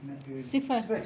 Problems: continuous background conversations, low volume